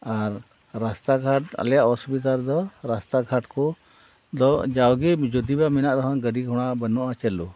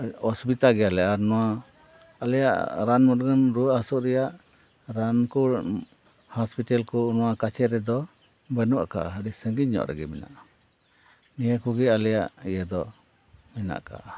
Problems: none marked